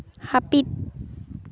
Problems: background sounds at intervals